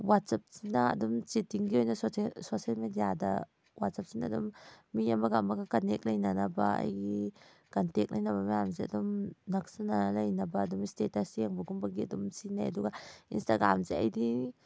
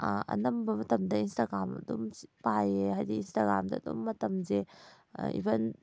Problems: none marked